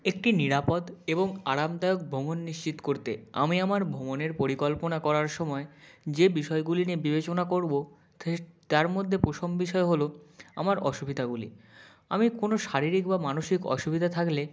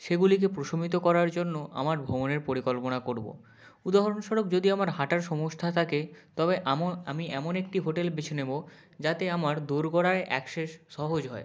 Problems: none marked